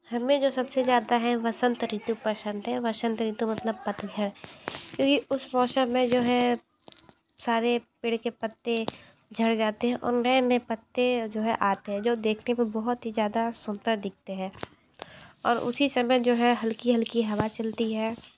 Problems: none marked